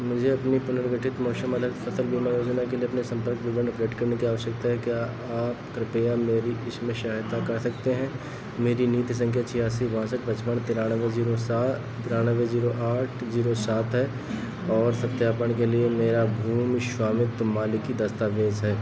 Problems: none marked